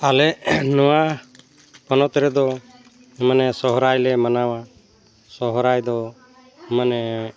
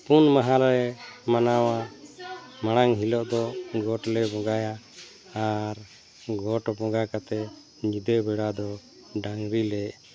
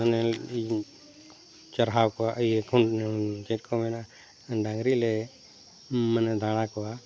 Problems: none marked